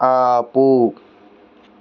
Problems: constant background noise